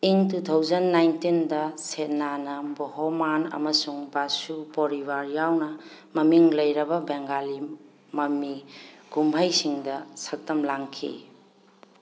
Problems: background sounds at intervals